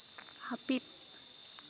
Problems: constant background noise